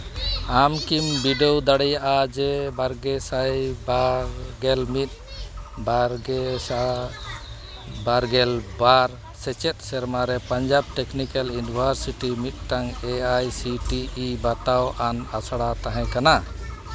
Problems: constant background noise, continuous background conversations